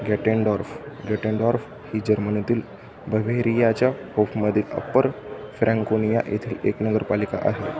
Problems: constant background noise, background conversations at intervals, low volume